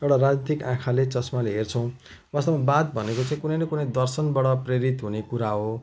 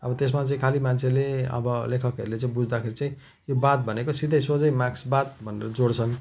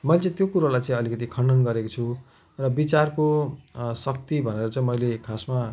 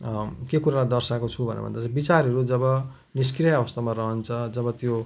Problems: none marked